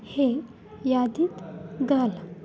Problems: none marked